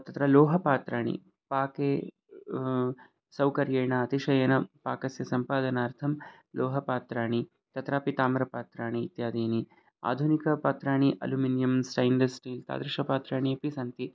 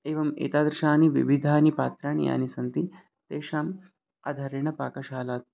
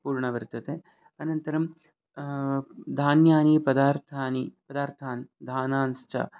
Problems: background sounds at intervals